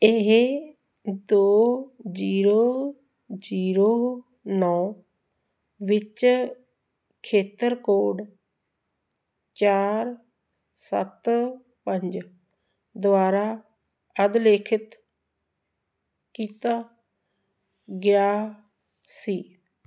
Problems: none marked